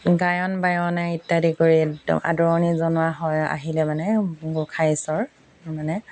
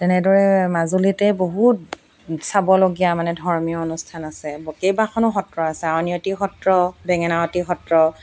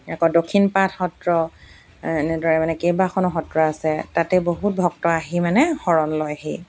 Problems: none marked